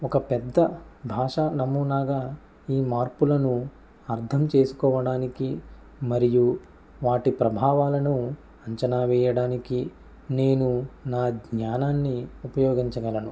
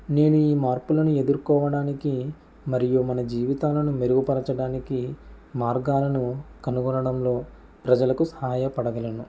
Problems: none marked